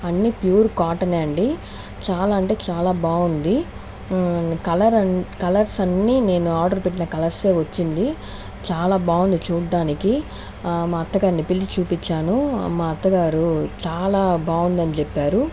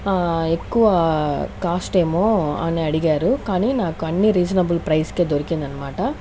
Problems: none marked